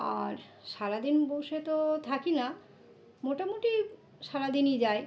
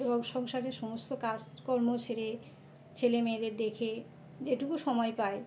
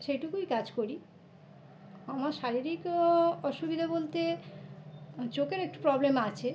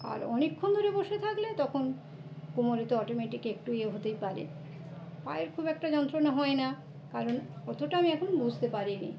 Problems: constant background noise, background conversations at intervals